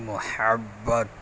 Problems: constant background noise